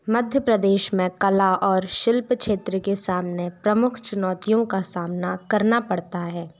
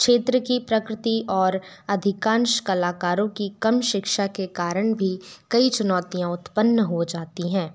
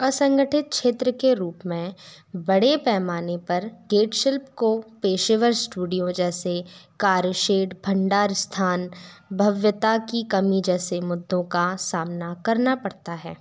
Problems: background sounds at intervals